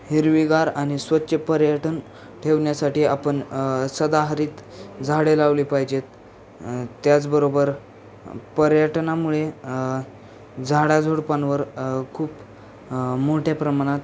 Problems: constant background noise, background conversations at intervals